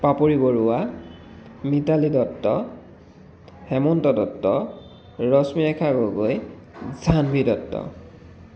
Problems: constant background noise